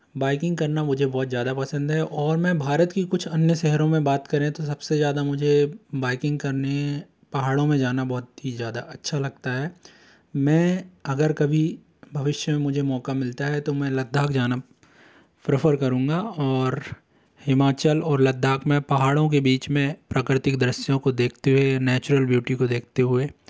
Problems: none marked